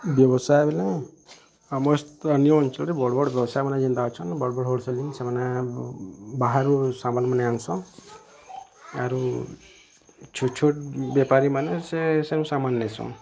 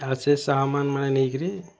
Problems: constant background noise, continuous background conversations